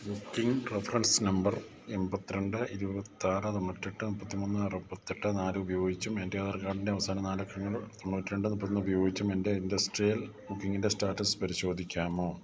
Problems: none marked